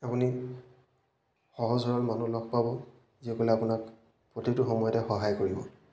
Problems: none marked